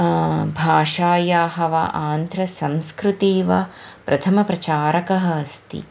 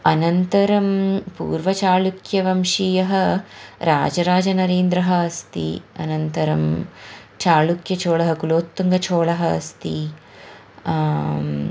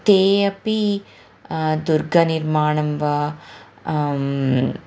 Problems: background sounds at intervals, background conversations at intervals